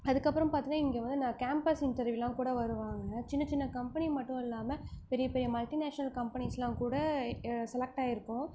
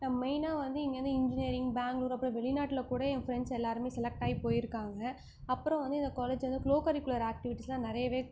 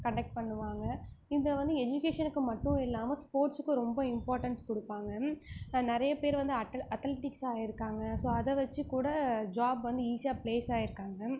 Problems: none marked